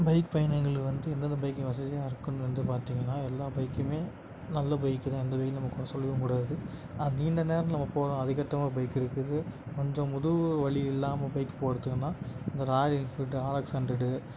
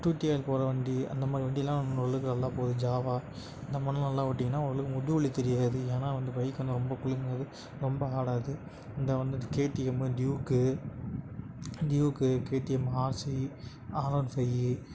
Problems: background sounds at intervals